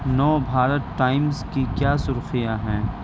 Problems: constant background noise